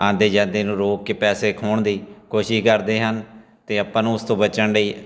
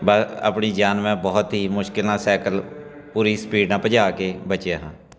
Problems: background sounds at intervals, continuous background conversations